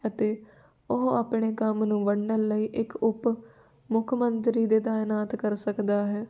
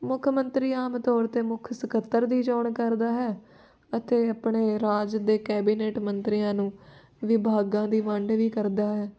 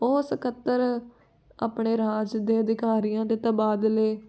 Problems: background conversations at intervals